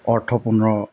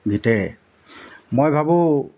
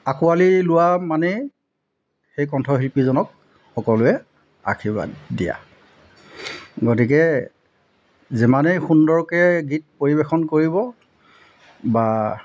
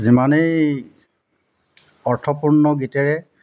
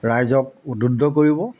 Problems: none marked